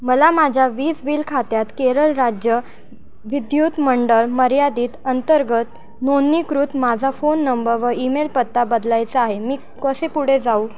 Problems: none marked